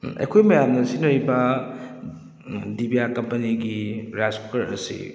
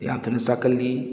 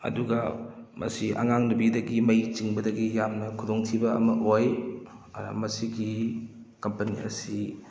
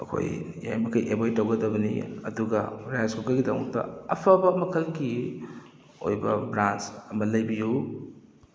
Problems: background sounds at intervals